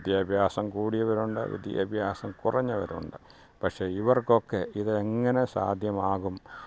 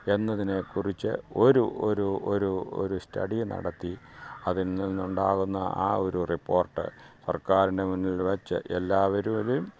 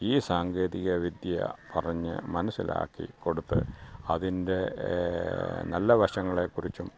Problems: background sounds at intervals, low volume